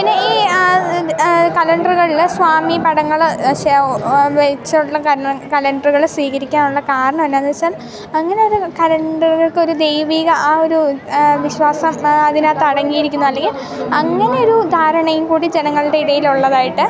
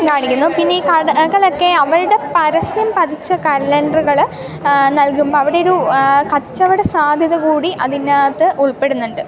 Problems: constant background noise